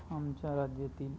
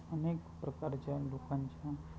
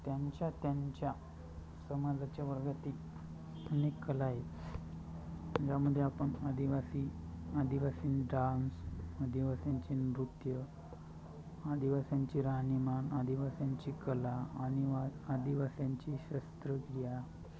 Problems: constant background noise, continuous background conversations